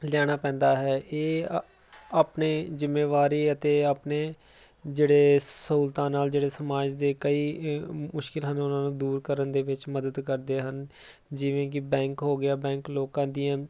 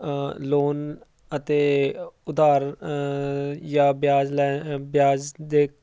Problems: none marked